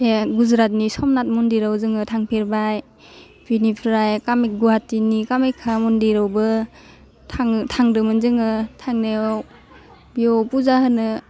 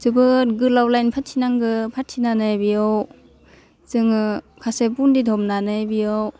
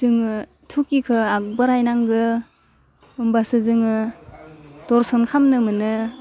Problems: none marked